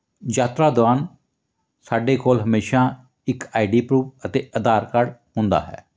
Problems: none marked